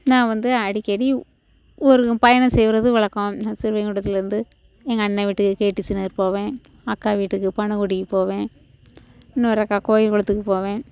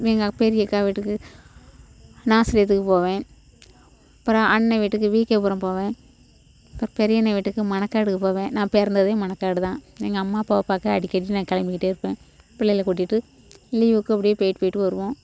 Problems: none marked